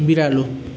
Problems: background sounds at intervals